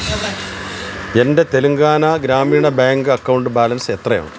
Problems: constant background noise